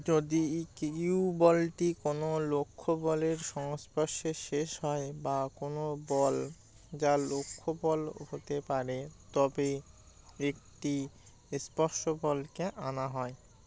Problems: none marked